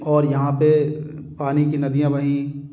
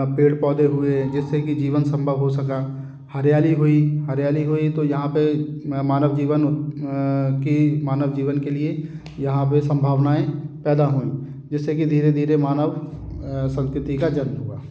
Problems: none marked